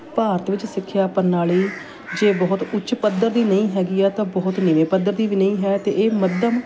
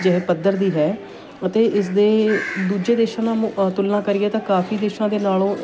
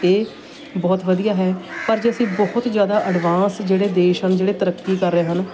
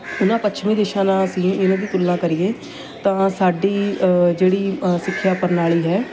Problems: constant background noise